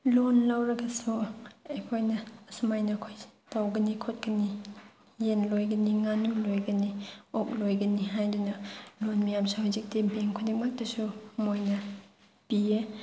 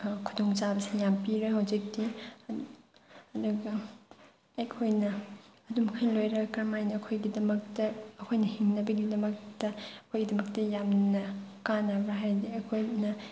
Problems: none marked